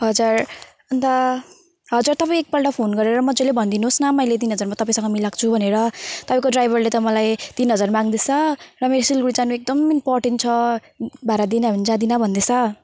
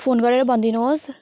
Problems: constant background noise